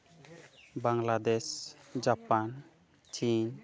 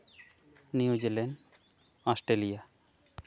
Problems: none marked